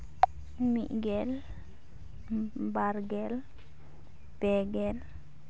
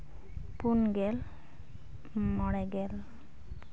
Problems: none marked